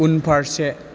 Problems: constant background noise